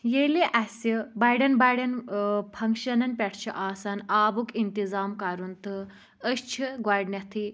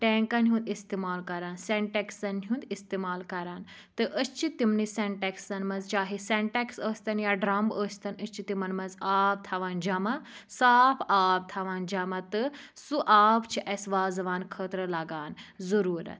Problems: low volume